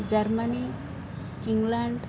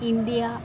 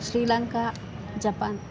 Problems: constant background noise